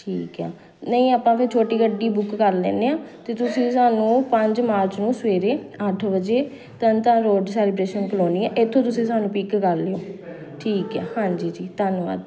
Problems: none marked